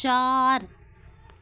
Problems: constant background noise